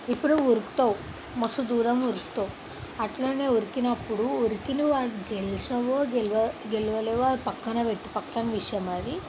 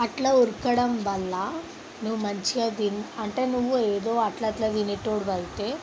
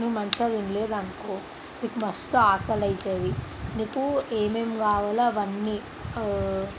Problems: constant background noise